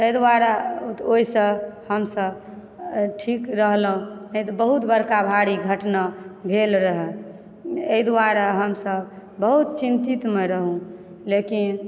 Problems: none marked